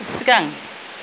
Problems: constant background noise, low volume